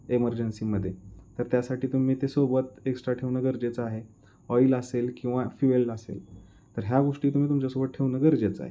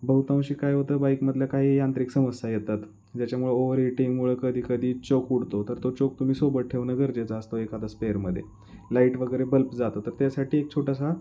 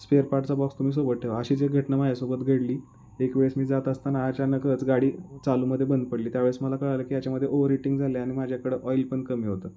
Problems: constant background noise